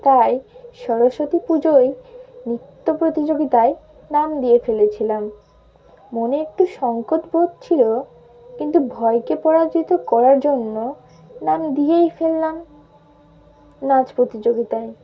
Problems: constant background noise